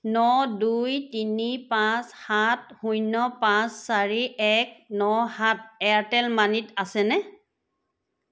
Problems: background sounds at intervals